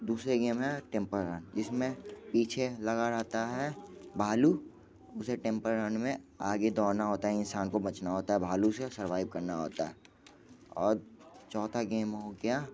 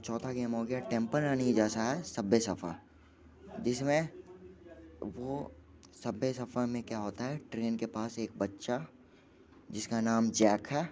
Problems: constant background noise, background conversations at intervals, low volume